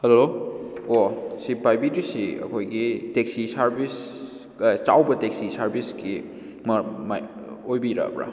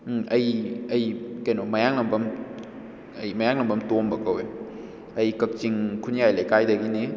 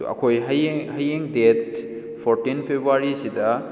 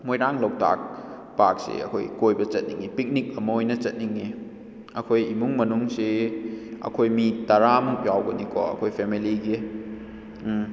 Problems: echo